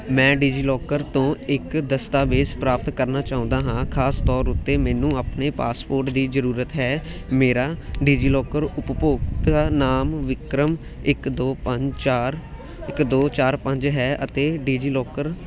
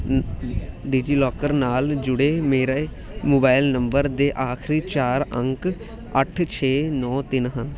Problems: constant background noise